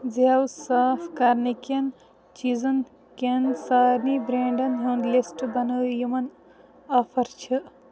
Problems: none marked